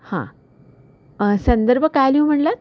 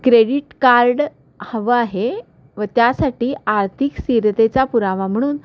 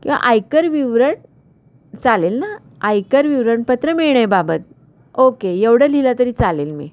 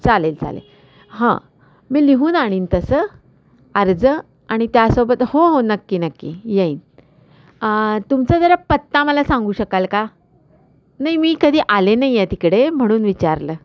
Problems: constant background noise, background conversations at intervals